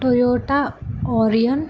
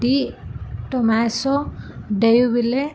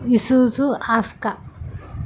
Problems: background sounds at intervals